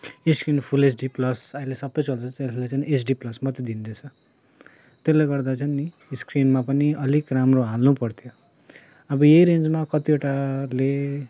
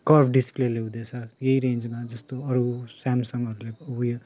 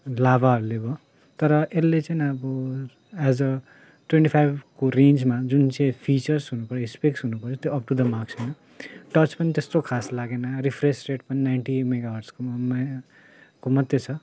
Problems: none marked